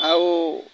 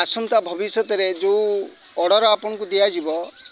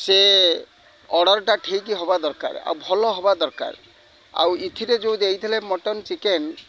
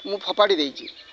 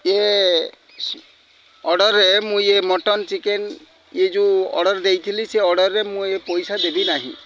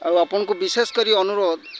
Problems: constant background noise, continuous background conversations